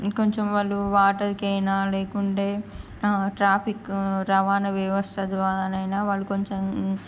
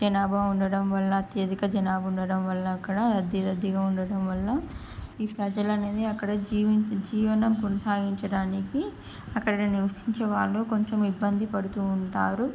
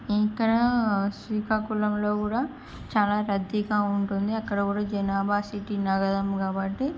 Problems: none marked